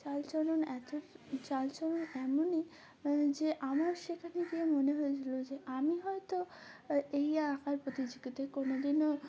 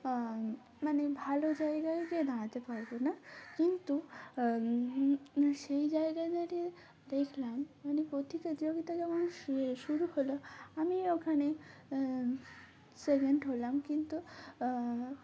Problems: constant background noise, background conversations at intervals